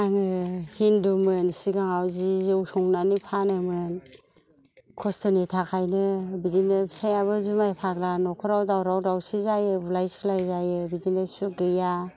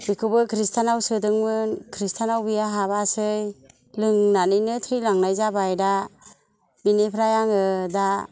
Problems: low volume